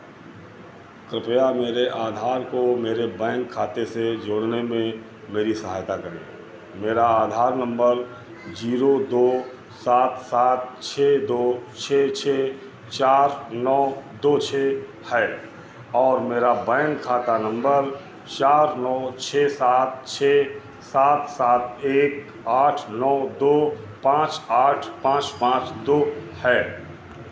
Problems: constant background noise, background conversations at intervals